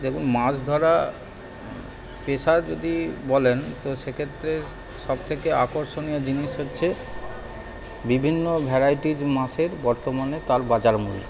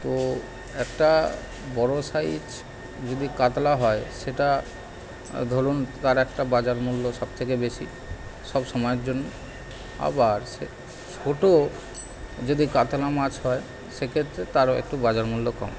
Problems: constant background noise